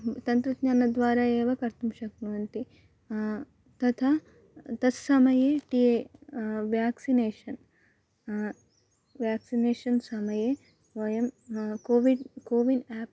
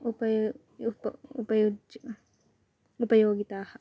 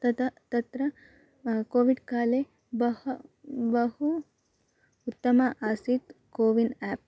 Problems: constant background noise